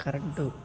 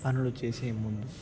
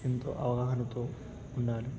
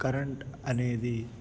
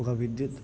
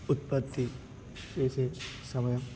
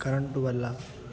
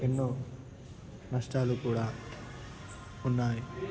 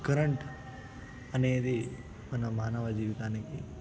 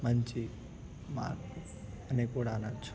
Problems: constant background noise, continuous background conversations